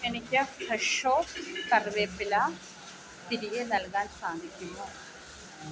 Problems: constant background noise